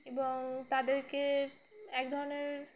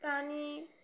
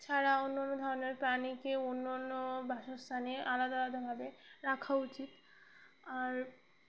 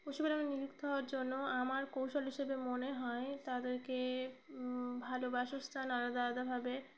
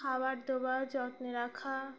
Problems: background sounds at intervals